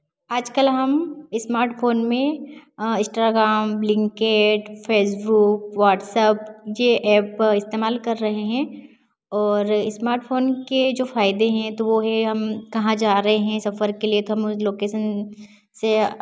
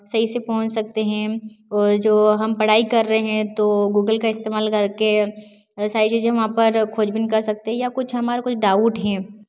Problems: none marked